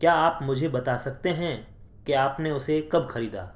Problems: constant background noise